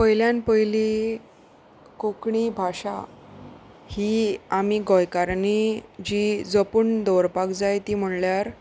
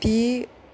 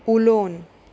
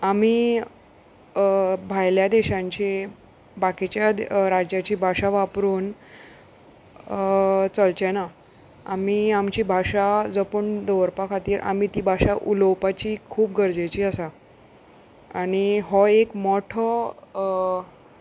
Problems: none marked